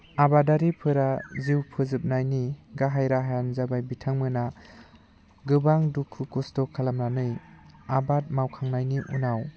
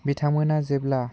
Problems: low volume